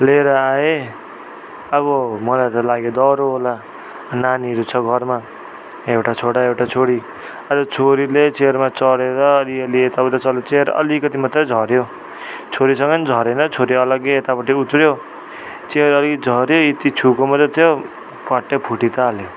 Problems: none marked